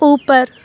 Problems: none marked